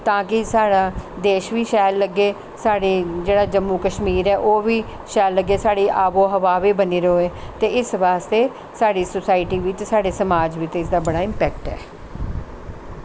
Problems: constant background noise